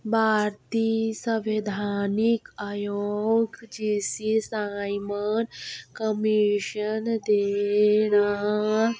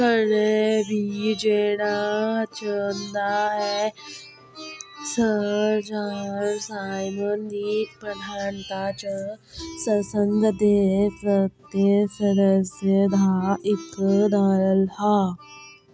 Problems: background sounds at intervals